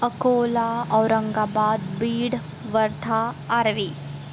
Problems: constant background noise